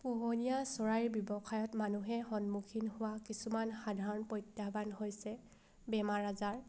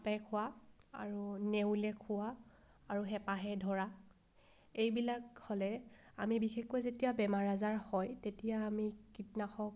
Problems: background sounds at intervals